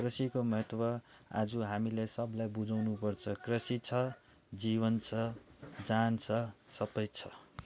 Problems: background sounds at intervals, background conversations at intervals